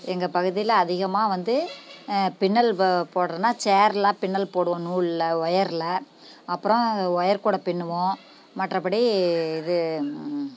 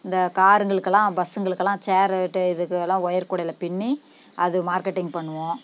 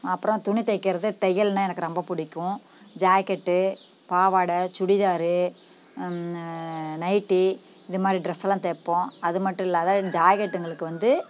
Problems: none marked